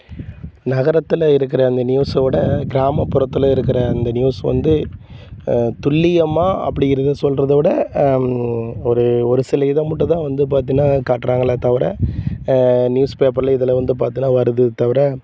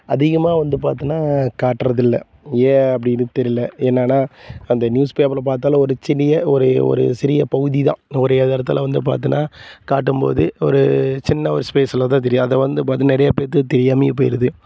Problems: constant background noise